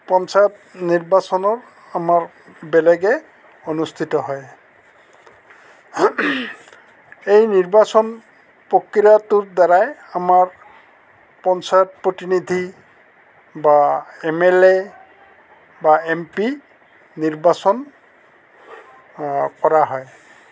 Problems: constant background noise, background conversations at intervals